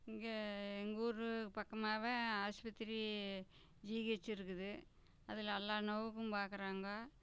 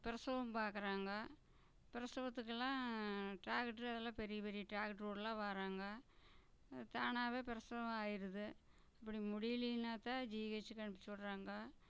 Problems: low volume